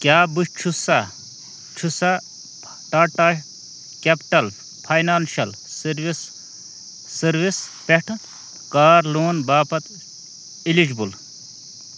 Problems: none marked